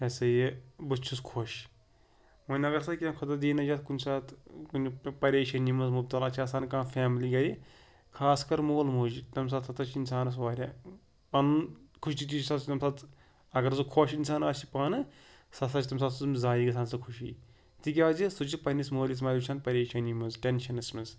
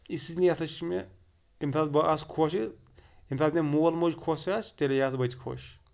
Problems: background sounds at intervals